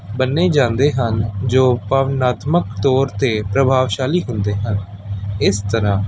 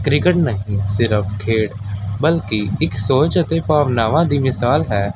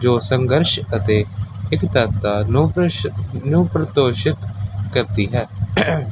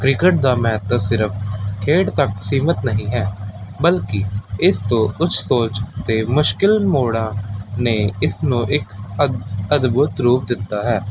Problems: constant background noise